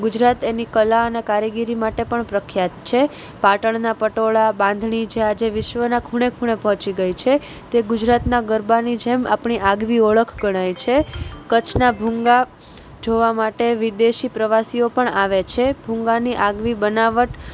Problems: none marked